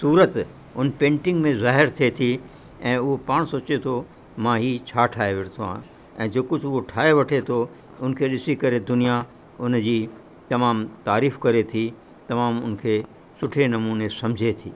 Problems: constant background noise